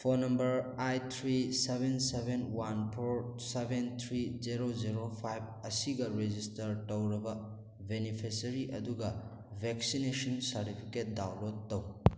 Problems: none marked